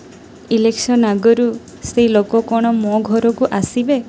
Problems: constant background noise